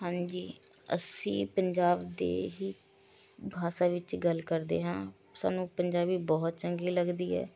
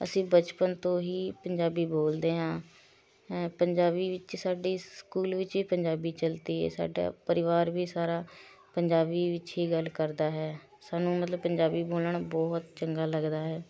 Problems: constant background noise